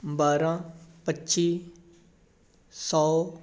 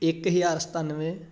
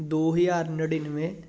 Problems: constant background noise